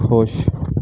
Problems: constant background noise